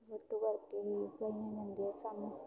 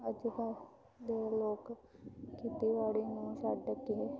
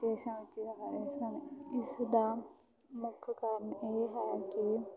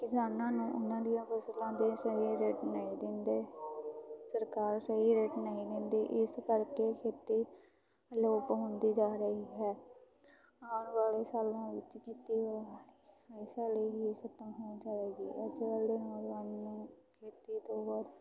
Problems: background sounds at intervals, continuous background conversations